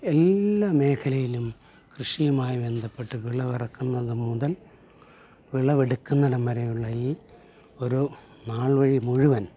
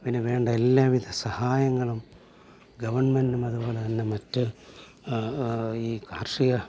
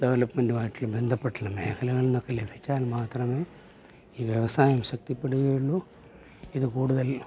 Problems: low volume